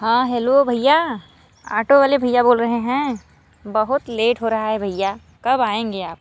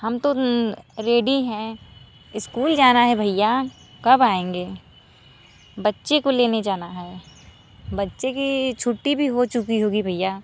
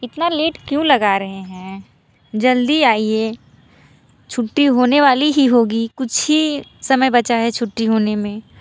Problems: none marked